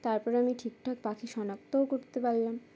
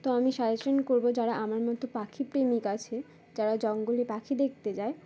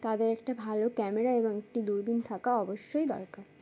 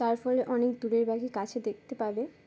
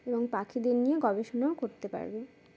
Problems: constant background noise